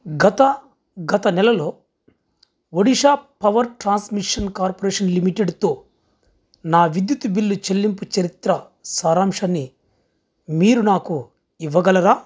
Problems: background sounds at intervals